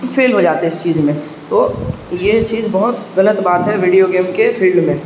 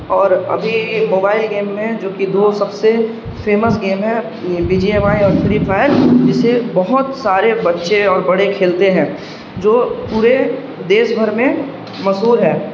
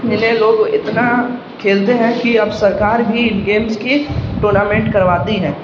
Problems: background sounds at intervals, background conversations at intervals